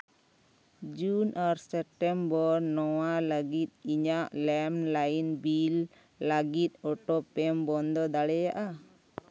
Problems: none marked